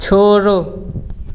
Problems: background sounds at intervals